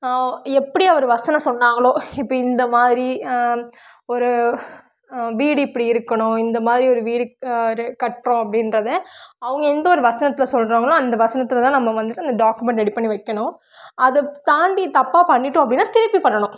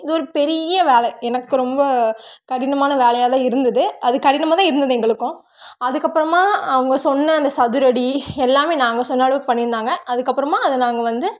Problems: none marked